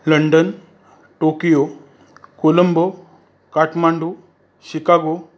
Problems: constant background noise